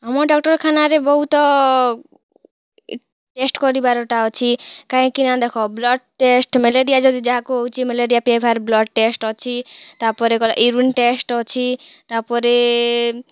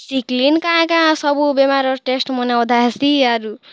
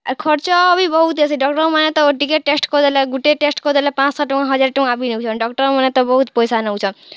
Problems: none marked